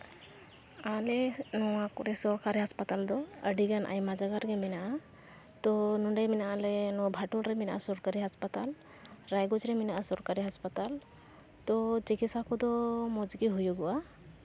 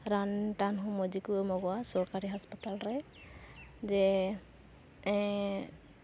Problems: constant background noise